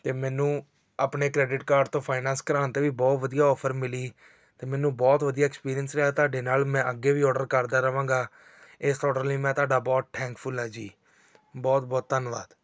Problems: background sounds at intervals